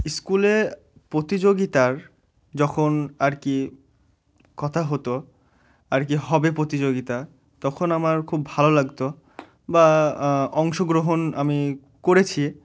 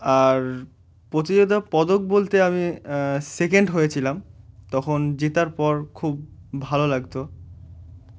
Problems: none marked